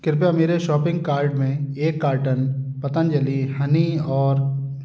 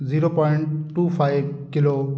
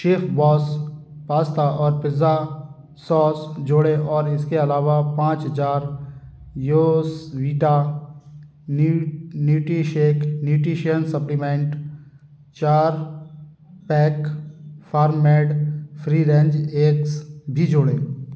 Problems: constant background noise